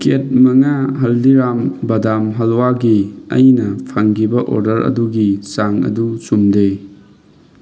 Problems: none marked